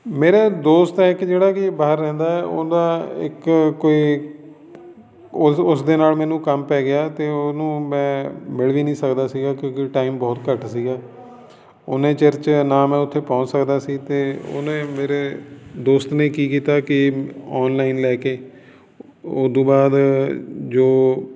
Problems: none marked